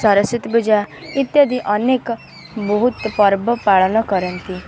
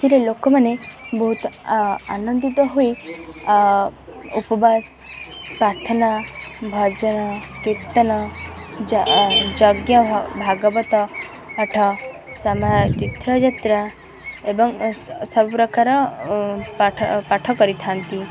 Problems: constant background noise, continuous background conversations